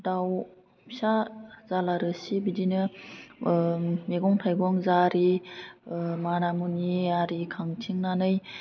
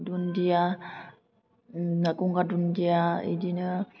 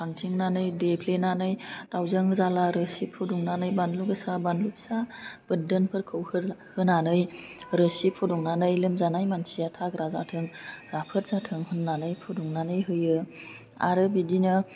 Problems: constant background noise